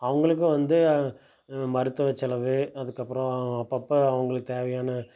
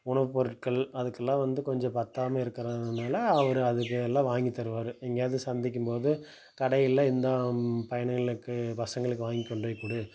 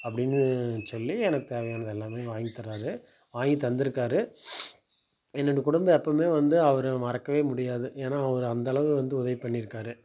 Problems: background sounds at intervals